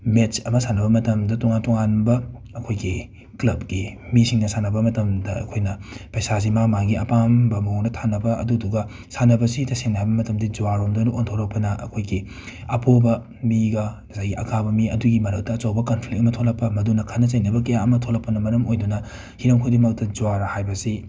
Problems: background sounds at intervals